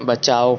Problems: constant background noise, echo